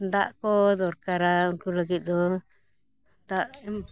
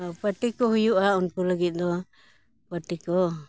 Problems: background sounds at intervals